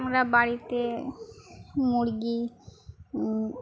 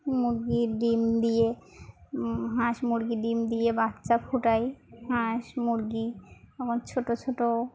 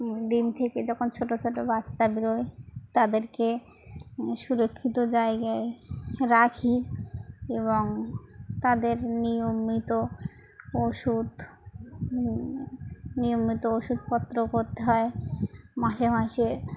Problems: constant background noise, background conversations at intervals